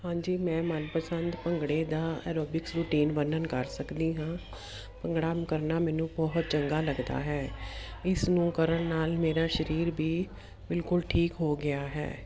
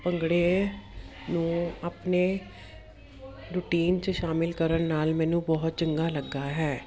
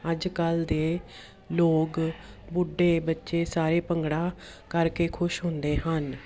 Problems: constant background noise